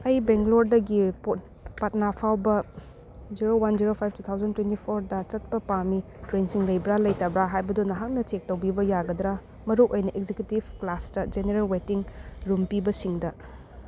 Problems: constant background noise